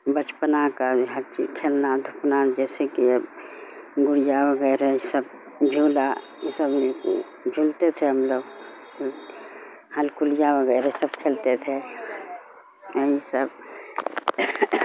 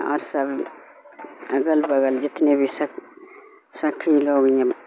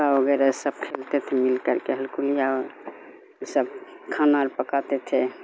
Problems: constant background noise